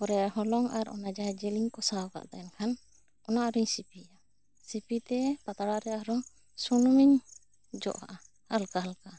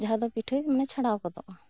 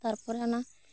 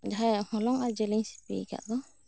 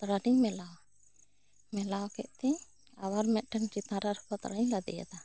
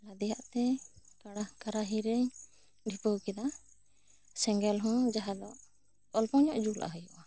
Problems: none marked